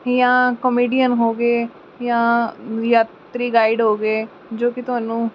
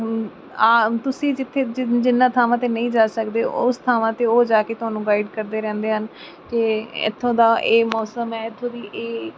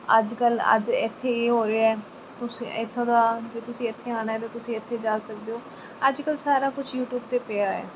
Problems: background sounds at intervals